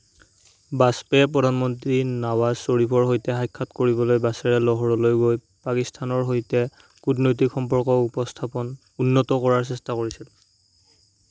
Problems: constant background noise